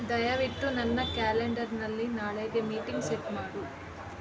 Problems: background sounds at intervals